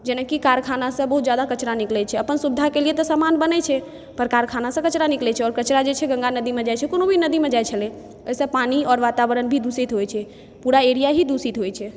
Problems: background sounds at intervals